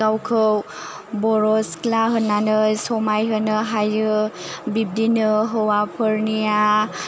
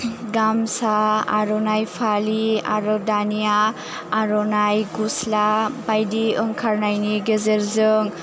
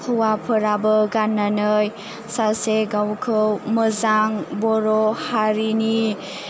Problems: low volume